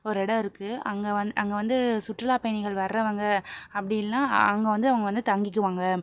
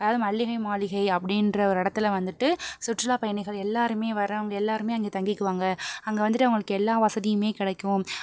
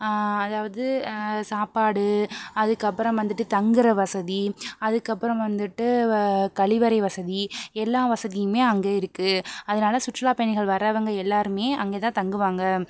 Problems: none marked